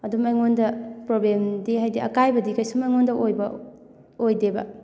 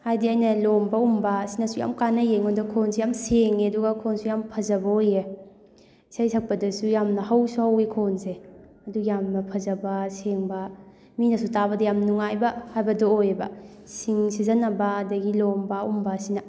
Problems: background sounds at intervals, background conversations at intervals